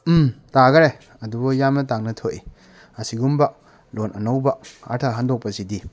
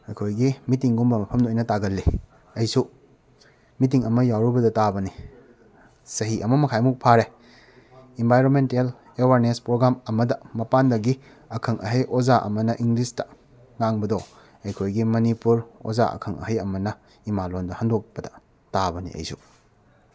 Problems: background sounds at intervals